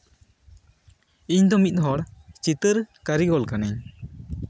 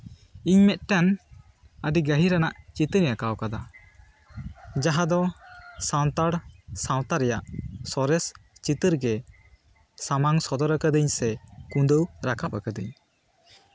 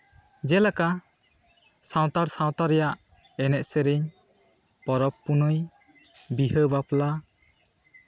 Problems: constant background noise, background conversations at intervals